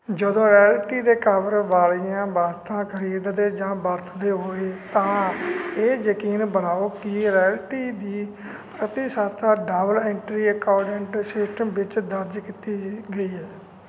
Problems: constant background noise